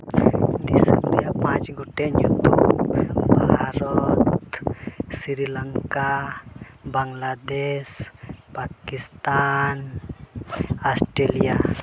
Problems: constant background noise